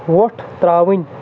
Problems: constant background noise